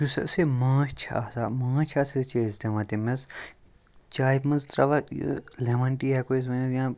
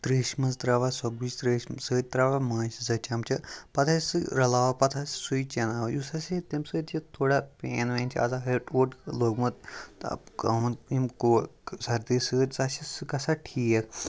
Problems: none marked